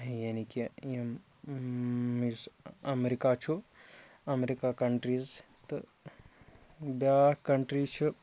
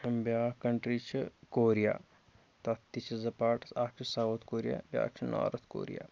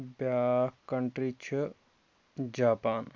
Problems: constant background noise